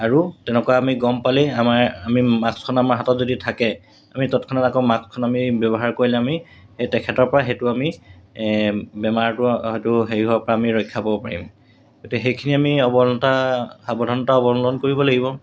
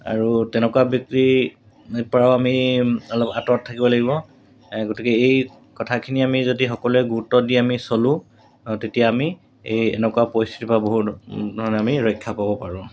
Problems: constant background noise